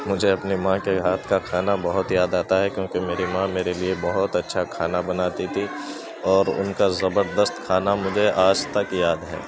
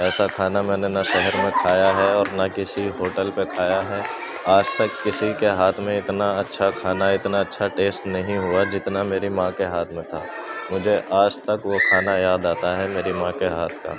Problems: constant background noise, continuous background conversations